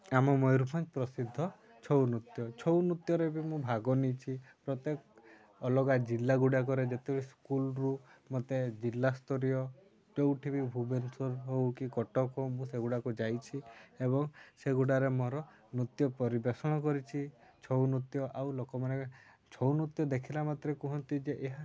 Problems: constant background noise, continuous background conversations